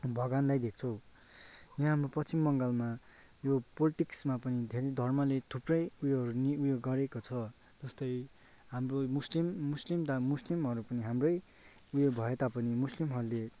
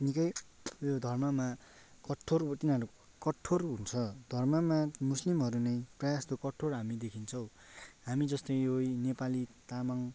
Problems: background sounds at intervals